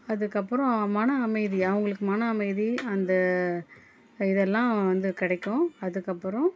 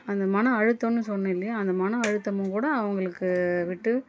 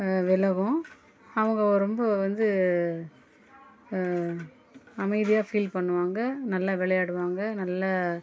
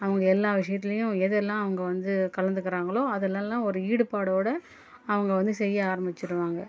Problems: low volume